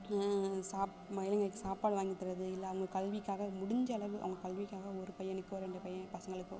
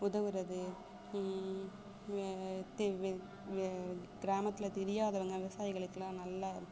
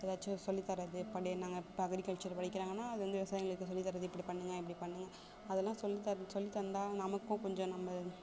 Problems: constant background noise, low volume